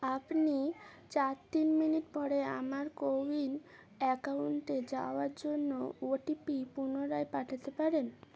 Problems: constant background noise